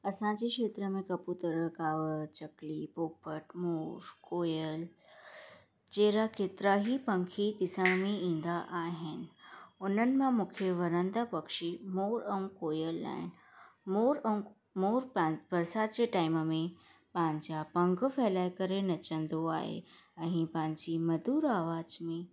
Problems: constant background noise